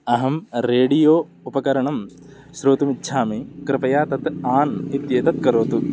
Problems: background sounds at intervals